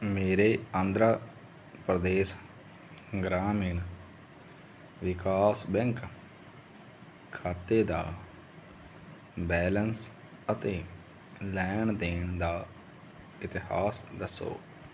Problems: none marked